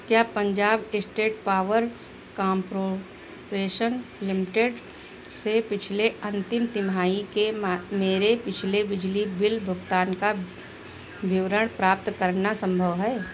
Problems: none marked